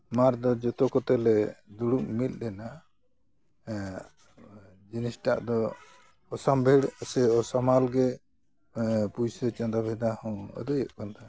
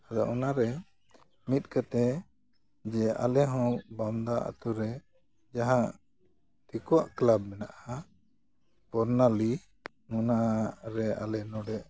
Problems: background sounds at intervals